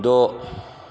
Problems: background sounds at intervals